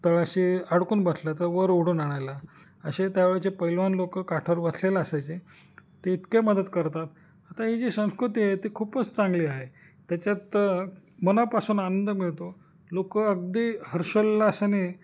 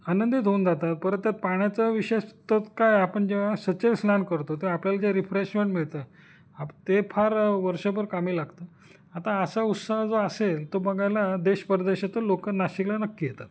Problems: none marked